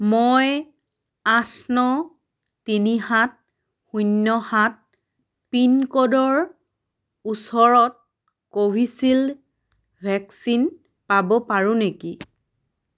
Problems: none marked